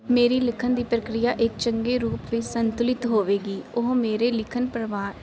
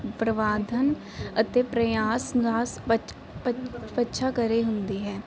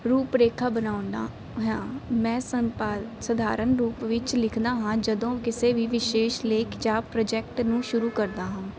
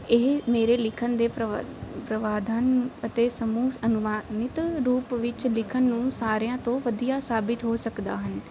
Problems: none marked